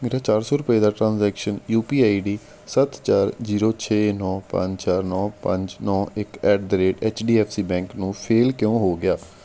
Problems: background sounds at intervals